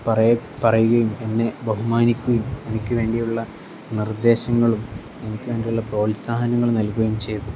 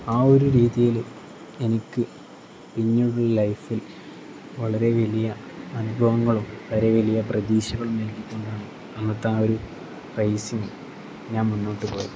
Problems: constant background noise